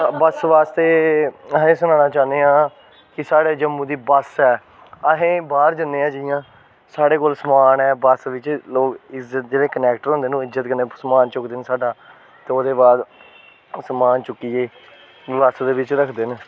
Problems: constant background noise